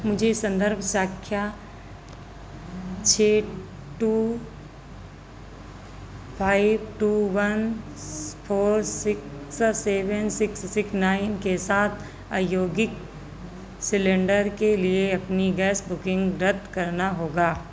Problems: none marked